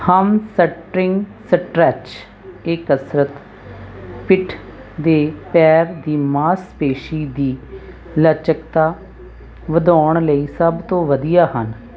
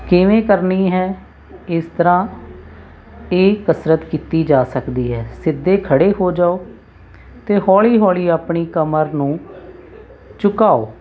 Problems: none marked